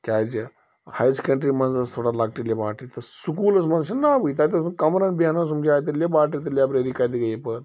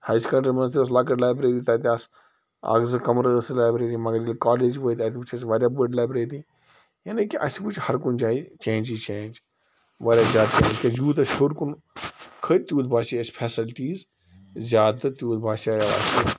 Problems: background sounds at intervals